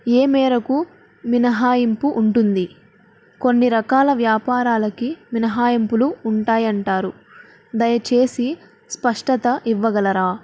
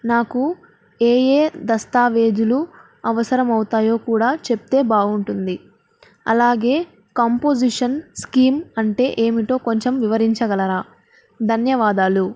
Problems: none marked